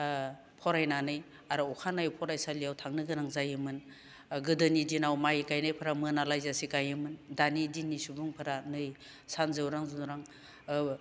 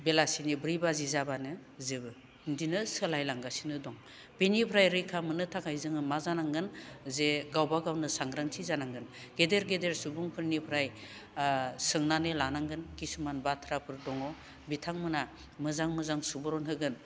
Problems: none marked